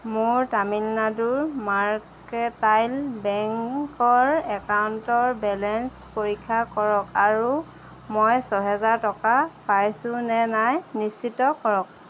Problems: none marked